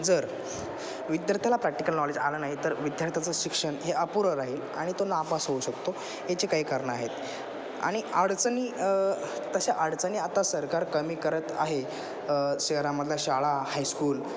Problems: constant background noise